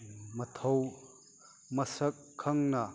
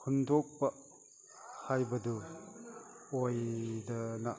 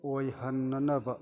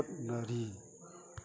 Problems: background conversations at intervals